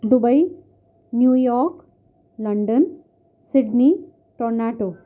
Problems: none marked